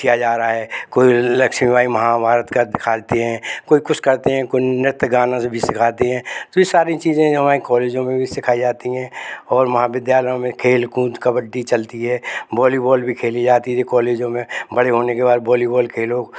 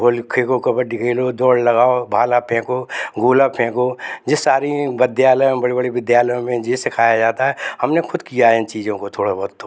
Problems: none marked